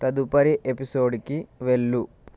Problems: constant background noise